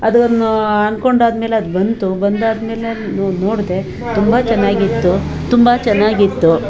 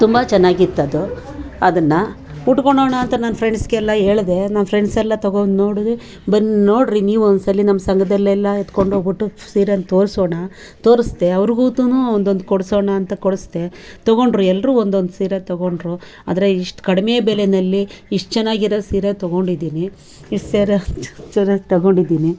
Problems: background sounds at intervals, background conversations at intervals